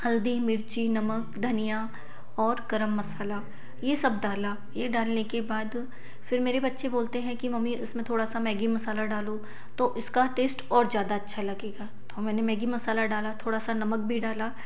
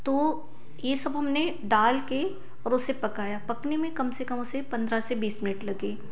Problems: none marked